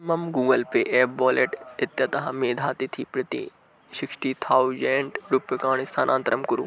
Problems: none marked